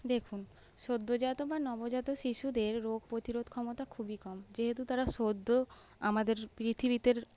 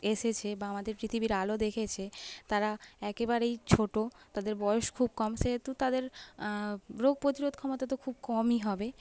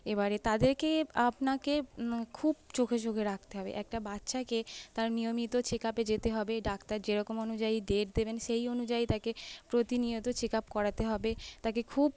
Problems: background sounds at intervals